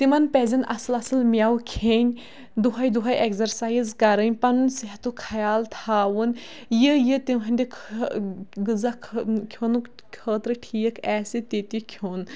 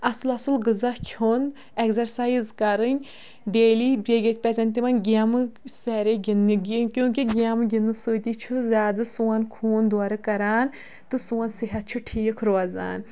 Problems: background sounds at intervals